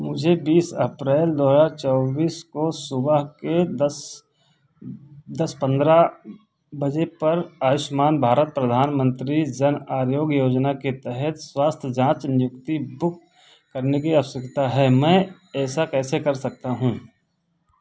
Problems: background sounds at intervals